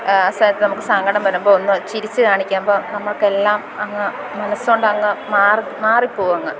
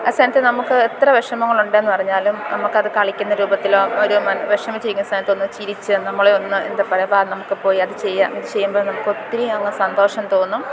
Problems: constant background noise, background conversations at intervals